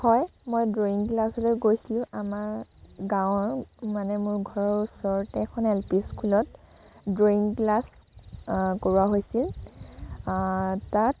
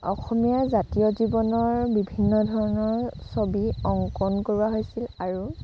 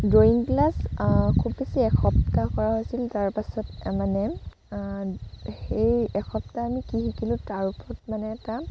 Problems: constant background noise